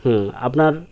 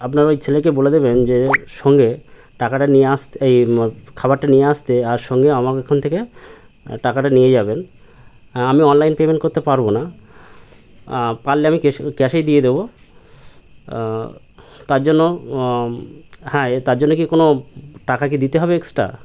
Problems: constant background noise